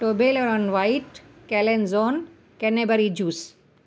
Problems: constant background noise, echo